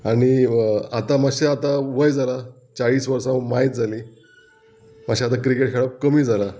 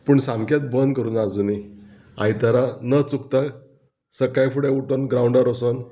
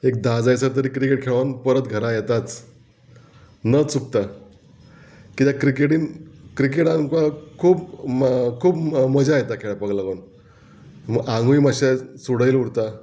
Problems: background sounds at intervals